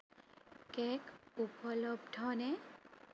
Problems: constant background noise